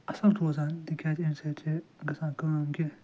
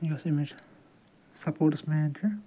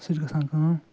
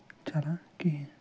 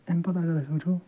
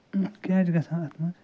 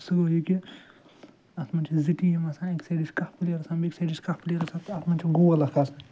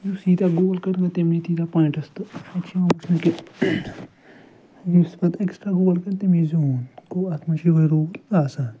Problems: background sounds at intervals, low volume